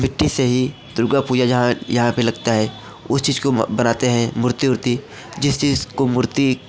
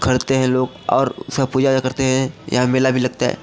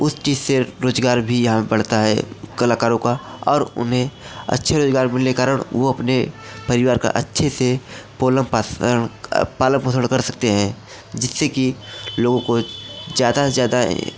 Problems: constant background noise